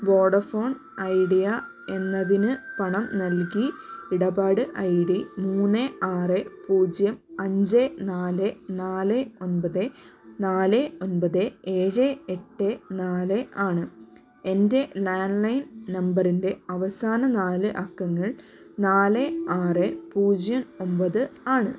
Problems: none marked